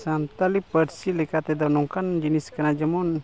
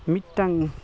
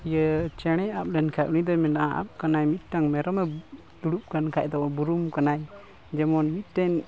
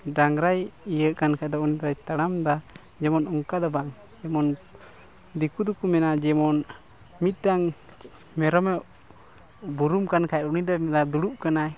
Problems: constant background noise